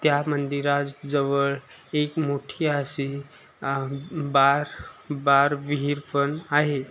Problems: none marked